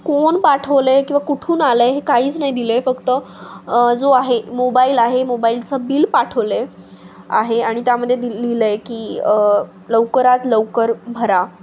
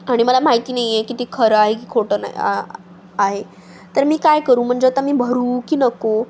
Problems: constant background noise